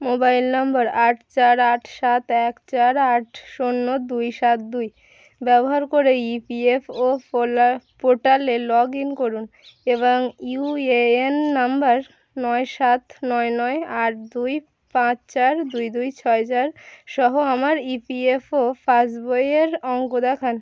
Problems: none marked